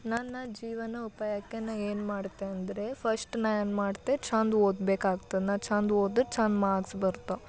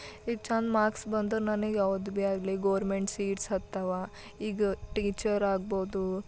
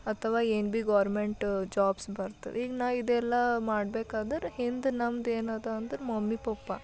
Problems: none marked